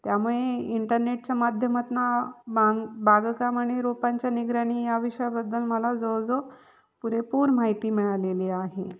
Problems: background sounds at intervals